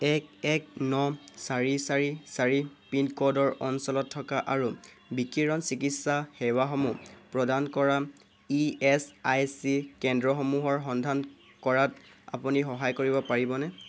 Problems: constant background noise